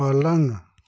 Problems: background sounds at intervals